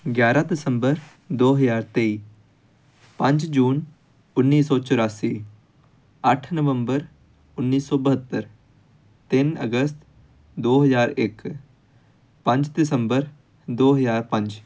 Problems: background sounds at intervals